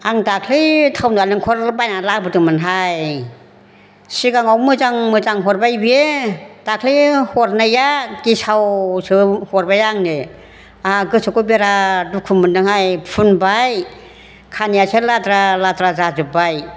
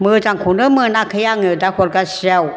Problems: background conversations at intervals